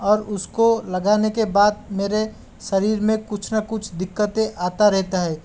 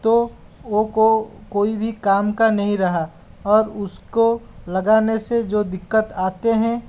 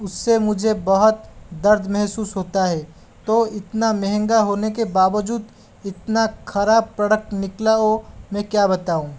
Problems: none marked